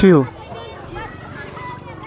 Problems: constant background noise